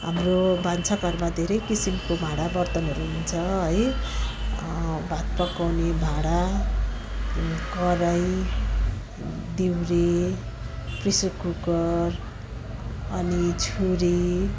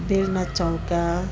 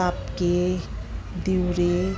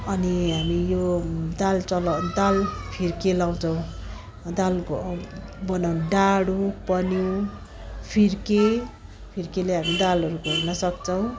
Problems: constant background noise, continuous background conversations